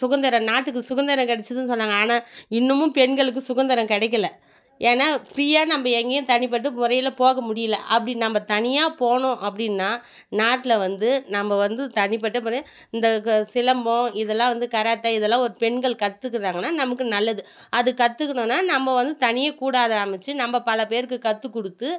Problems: none marked